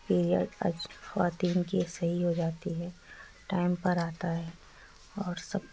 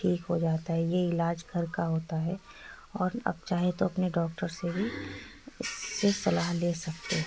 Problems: constant background noise, background conversations at intervals